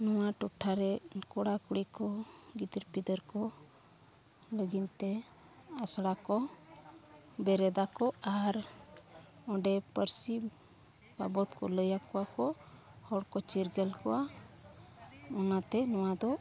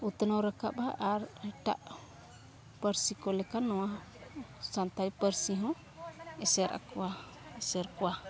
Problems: background conversations at intervals